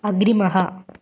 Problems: constant background noise